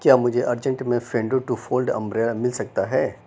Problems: constant background noise